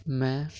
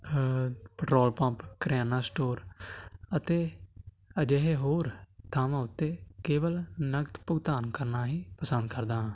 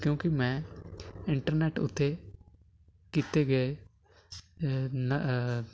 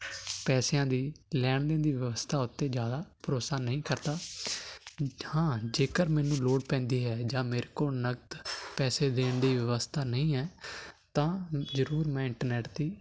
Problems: constant background noise